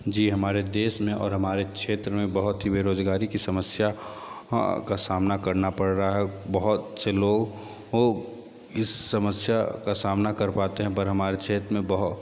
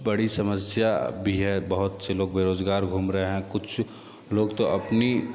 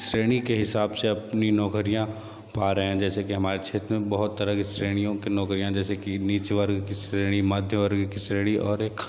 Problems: constant background noise